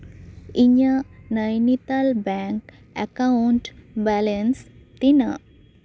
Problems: none marked